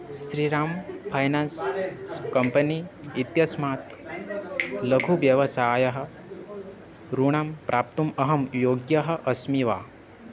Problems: constant background noise